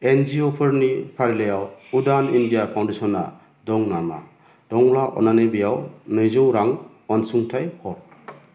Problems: constant background noise